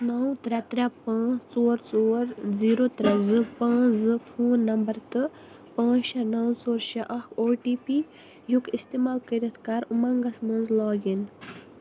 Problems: none marked